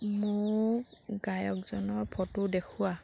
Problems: none marked